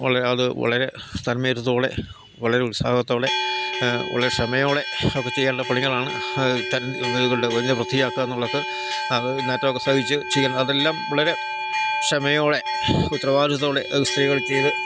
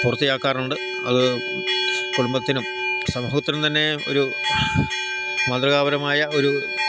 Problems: constant background noise, low volume